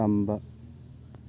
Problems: constant background noise